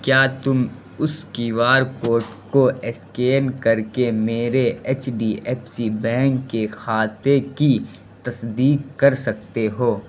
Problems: constant background noise